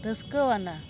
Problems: constant background noise